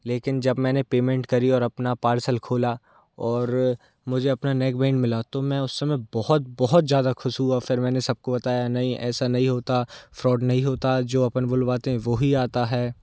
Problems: none marked